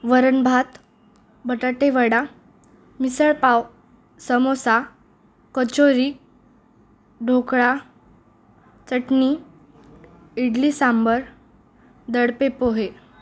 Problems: none marked